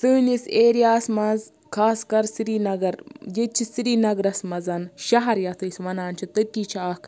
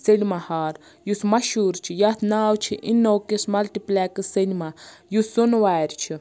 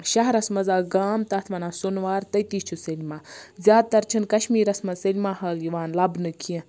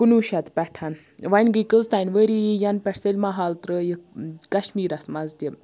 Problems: background sounds at intervals